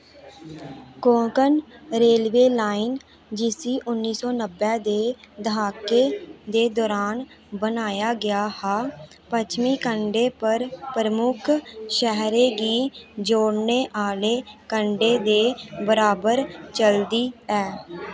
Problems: none marked